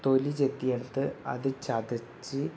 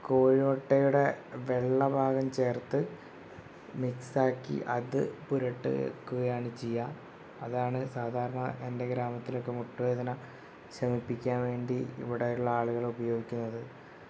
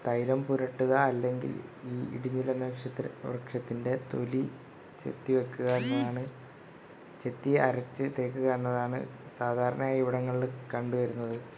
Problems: background sounds at intervals